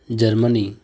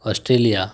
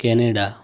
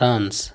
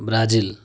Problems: background sounds at intervals